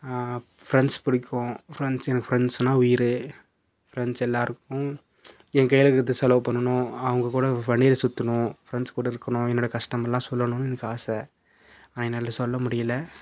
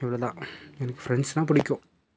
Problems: none marked